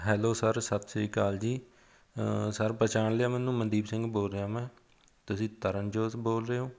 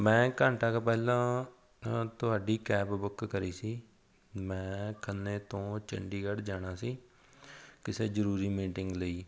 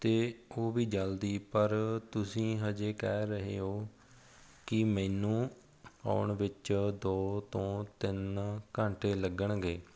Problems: background sounds at intervals